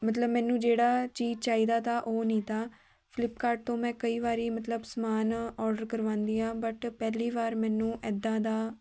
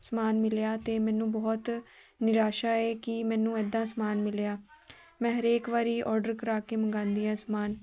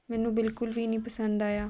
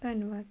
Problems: continuous background conversations